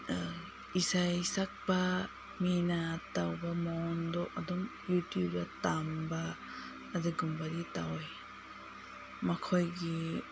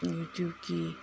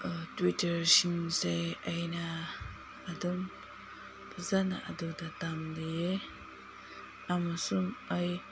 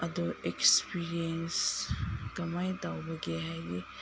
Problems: background sounds at intervals, low volume